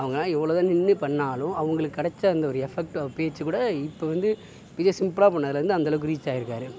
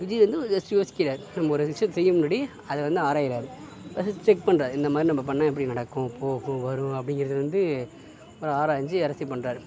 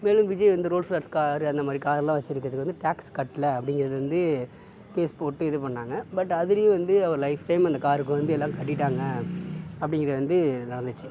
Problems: background sounds at intervals, background conversations at intervals, low volume